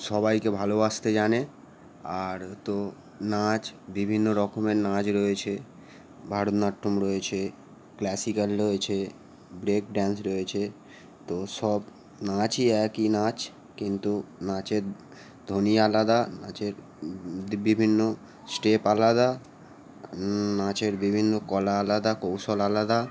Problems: none marked